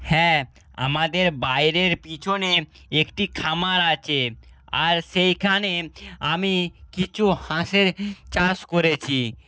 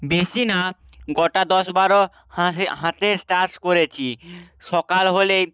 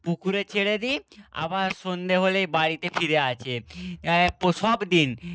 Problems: none marked